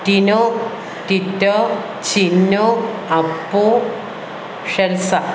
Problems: constant background noise